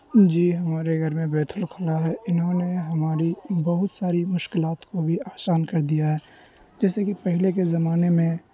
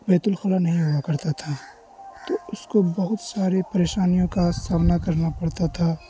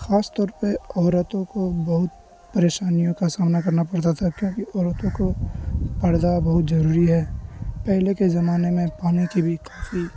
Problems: constant background noise